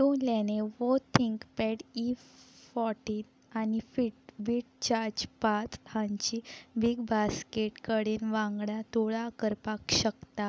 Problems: none marked